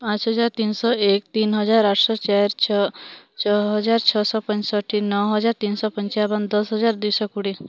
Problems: none marked